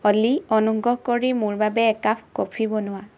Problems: none marked